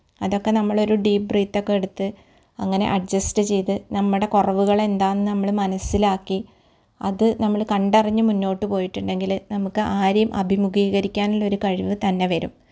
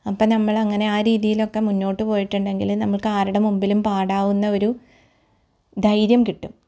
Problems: none marked